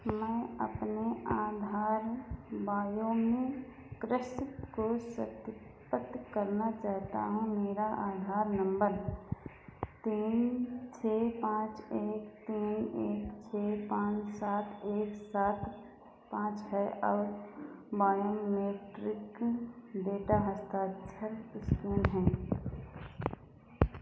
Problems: constant background noise, echo